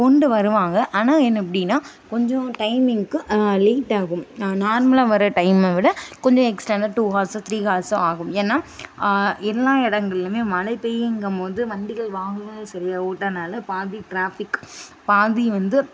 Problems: background sounds at intervals